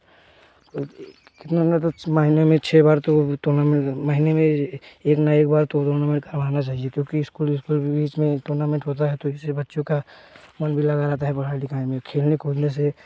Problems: background sounds at intervals